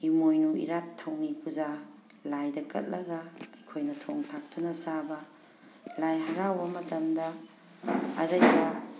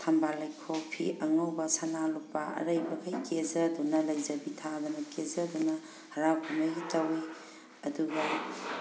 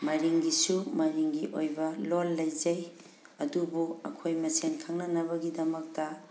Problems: background sounds at intervals